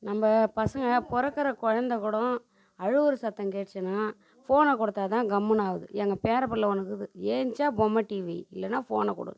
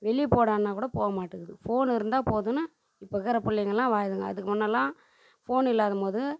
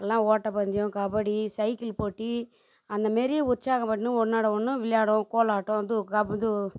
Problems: none marked